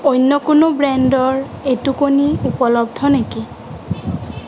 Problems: constant background noise